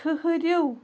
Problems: background sounds at intervals